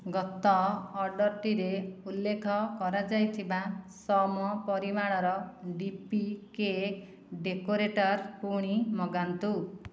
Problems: none marked